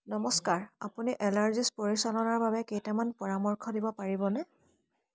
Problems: constant background noise